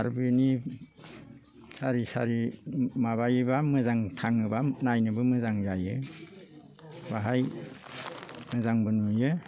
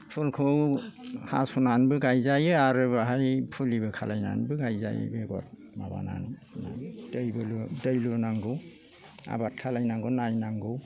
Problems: low volume